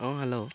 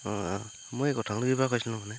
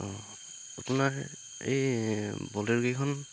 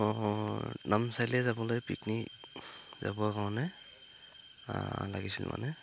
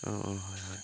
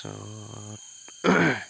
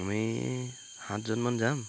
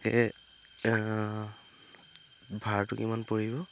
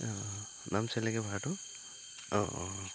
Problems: constant background noise